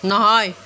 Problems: constant background noise